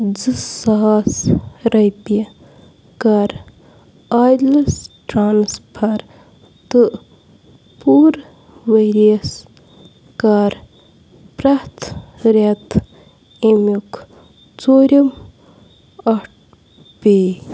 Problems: constant background noise